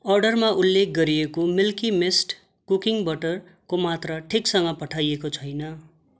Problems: constant background noise